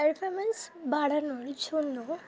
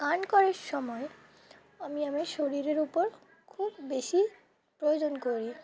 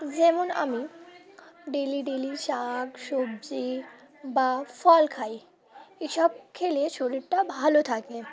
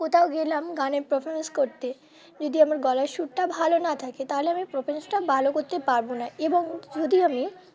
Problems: constant background noise, continuous background conversations